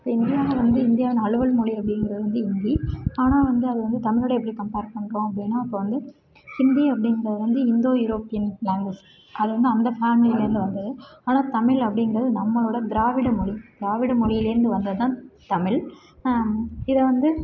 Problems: none marked